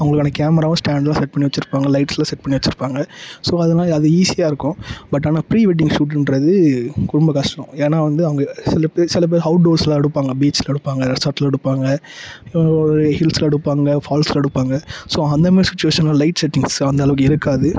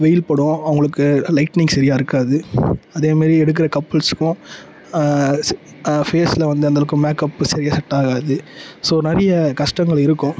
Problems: background sounds at intervals